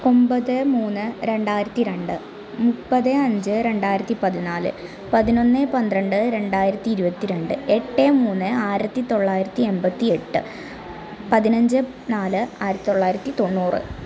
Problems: background sounds at intervals